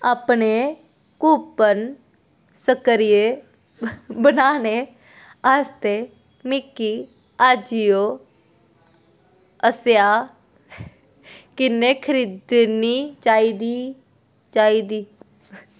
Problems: background sounds at intervals